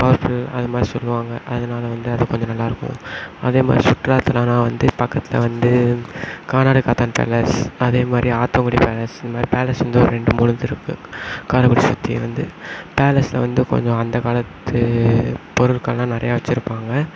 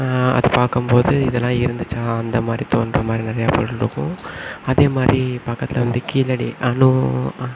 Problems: background sounds at intervals